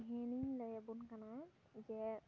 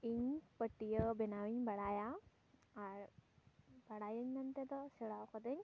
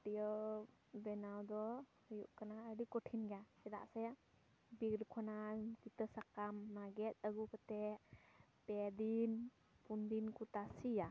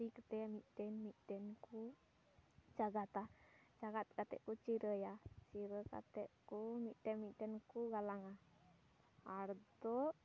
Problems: none marked